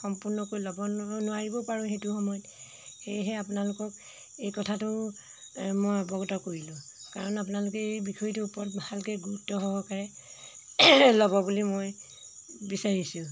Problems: constant background noise